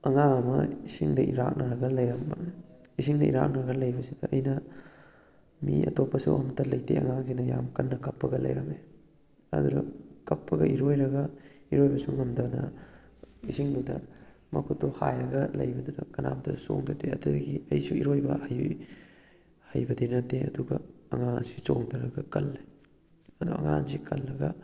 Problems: none marked